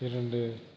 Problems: low volume